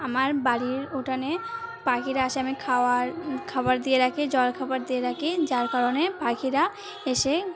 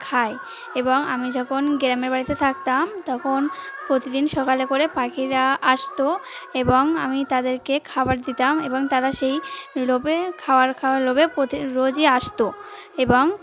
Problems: none marked